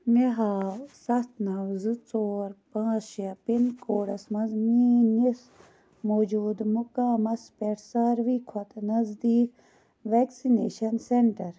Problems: background sounds at intervals